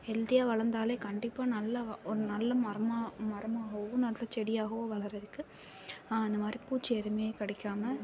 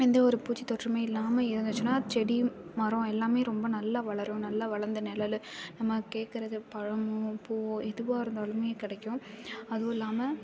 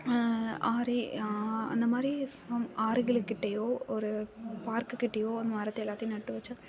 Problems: background sounds at intervals, background conversations at intervals